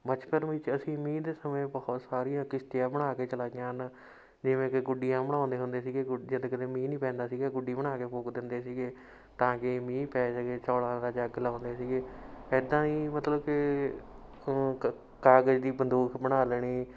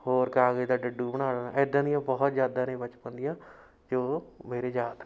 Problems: background sounds at intervals